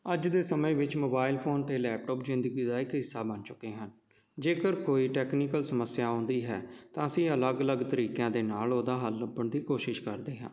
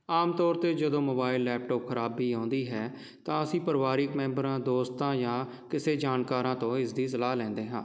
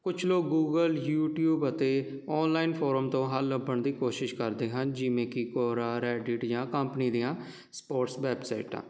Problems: none marked